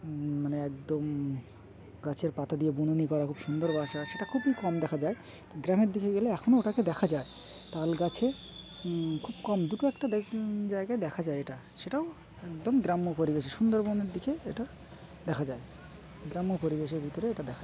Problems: constant background noise, continuous background conversations